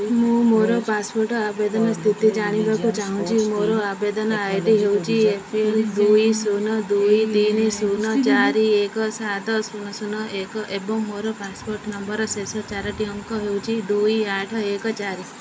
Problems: constant background noise